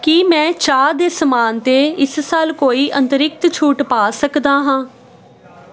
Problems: constant background noise